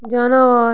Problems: background sounds at intervals